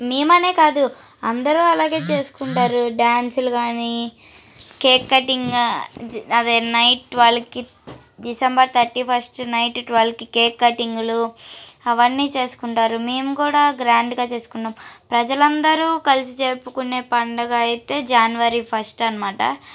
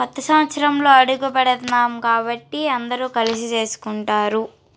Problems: background sounds at intervals